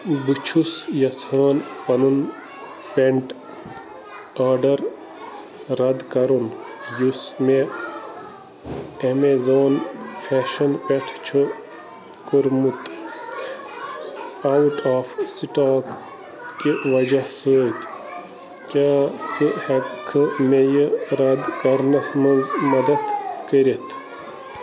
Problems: constant background noise